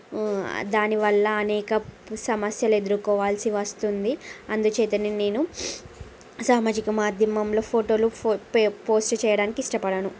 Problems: constant background noise, background conversations at intervals